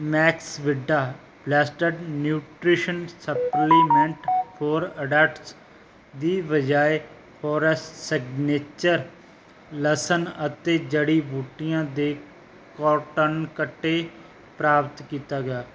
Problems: background sounds at intervals